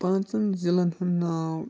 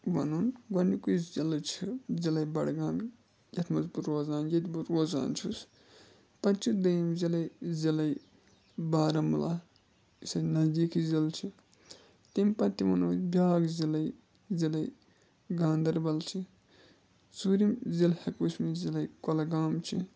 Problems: constant background noise